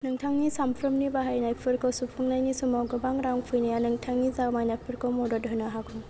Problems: none marked